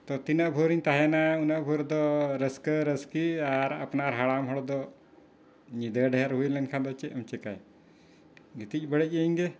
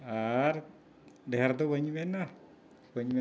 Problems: none marked